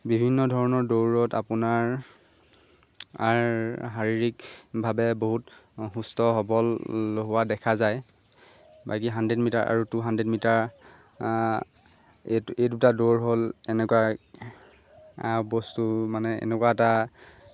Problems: constant background noise